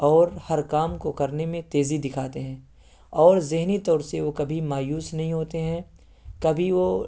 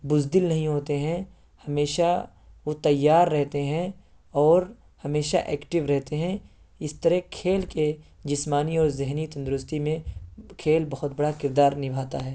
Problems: none marked